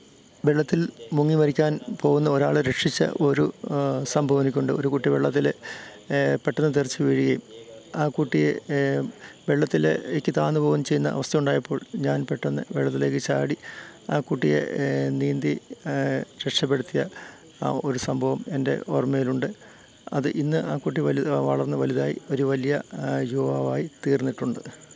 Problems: constant background noise